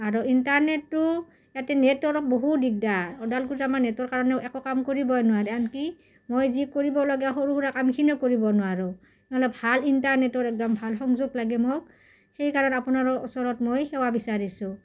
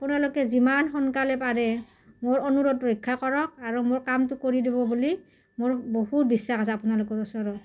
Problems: background sounds at intervals